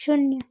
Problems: background sounds at intervals